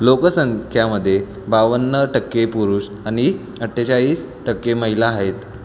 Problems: constant background noise, background conversations at intervals